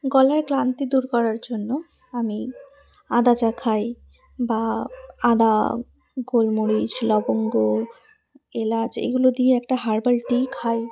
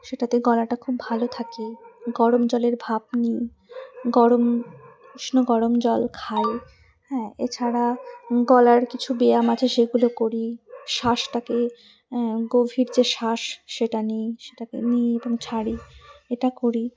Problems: background sounds at intervals